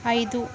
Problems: continuous background conversations